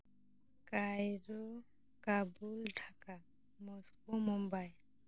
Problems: background sounds at intervals